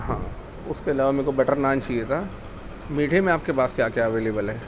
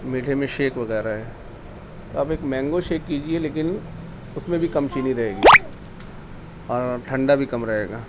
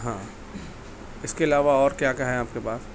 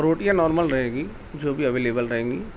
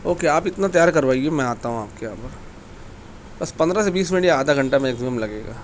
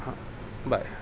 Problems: constant background noise, background conversations at intervals